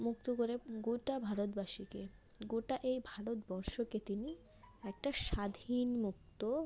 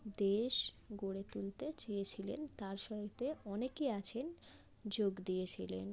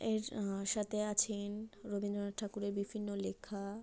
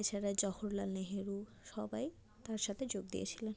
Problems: background sounds at intervals